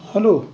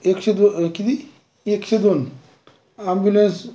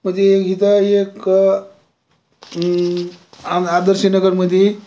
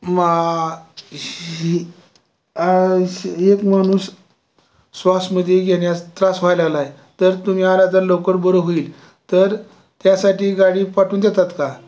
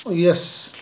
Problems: constant background noise, background conversations at intervals